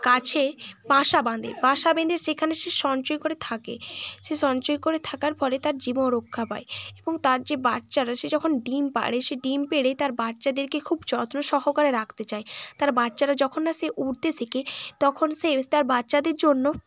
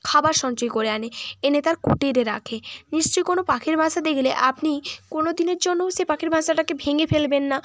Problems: none marked